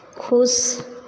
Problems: none marked